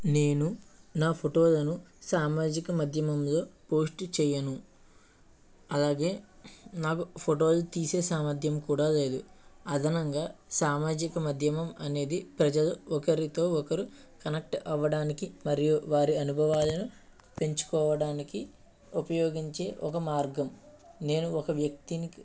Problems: none marked